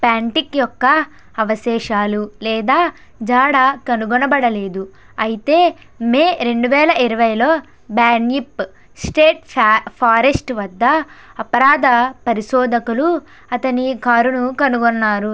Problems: constant background noise